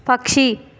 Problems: constant background noise